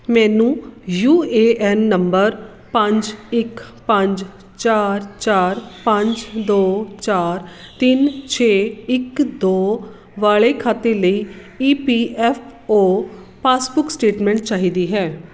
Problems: none marked